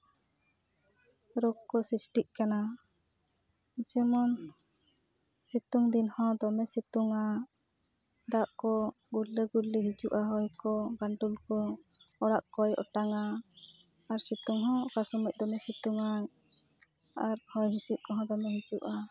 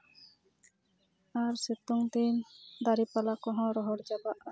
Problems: background sounds at intervals